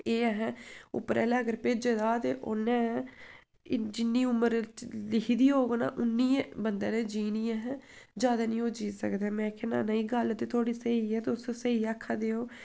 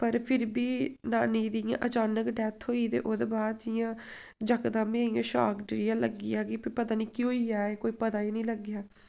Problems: none marked